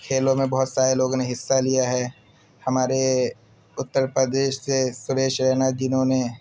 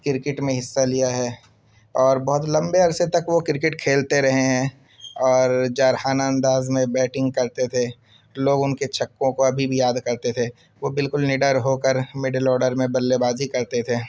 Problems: constant background noise